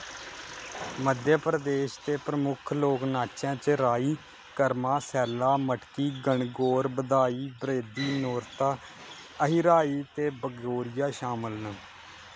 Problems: constant background noise